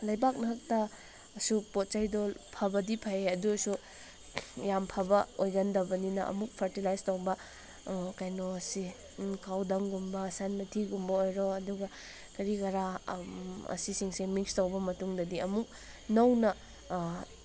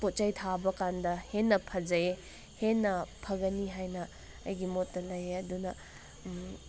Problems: constant background noise